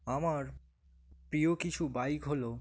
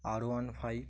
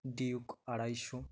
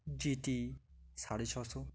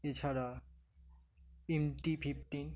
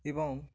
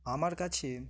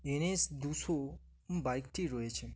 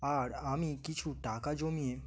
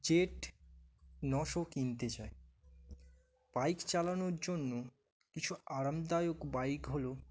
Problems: background sounds at intervals